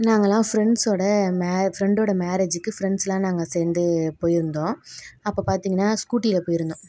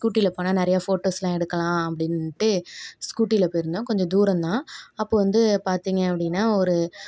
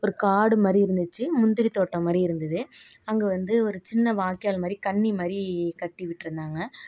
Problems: none marked